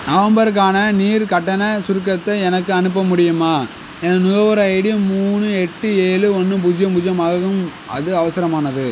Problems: constant background noise